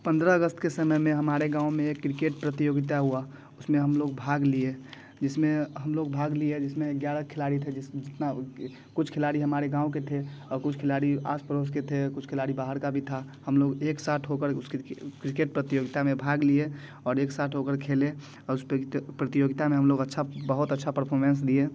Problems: constant background noise